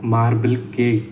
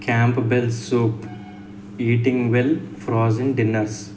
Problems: none marked